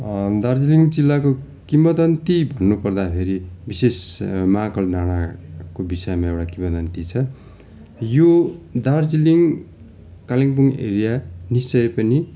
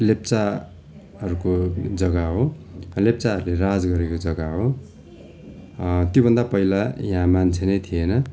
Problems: constant background noise